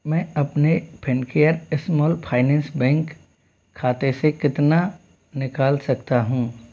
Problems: constant background noise